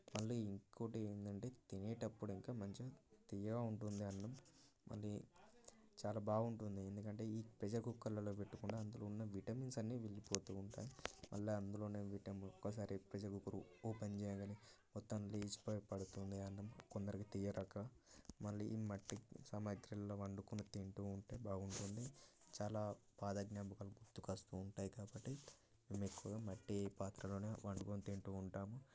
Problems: continuous background conversations, low volume